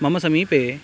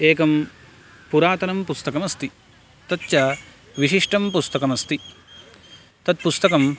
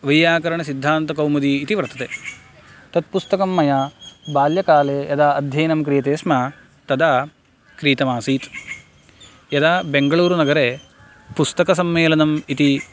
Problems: constant background noise